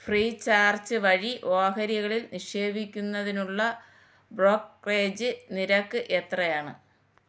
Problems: none marked